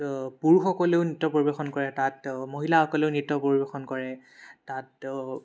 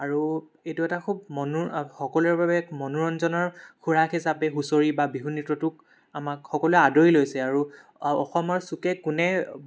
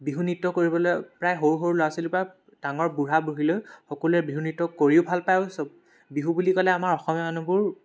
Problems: background sounds at intervals